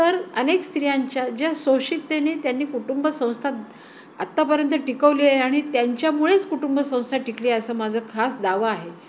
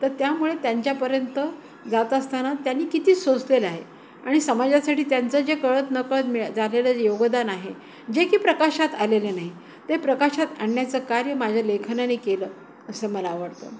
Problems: constant background noise, background conversations at intervals